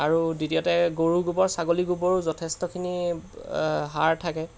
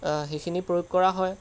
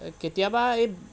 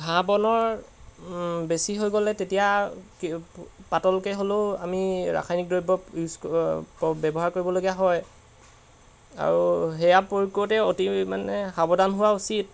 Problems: background sounds at intervals